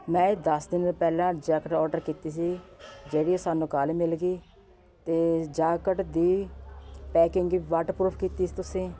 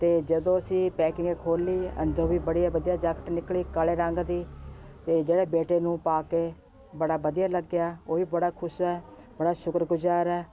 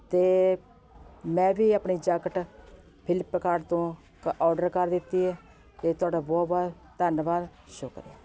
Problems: constant background noise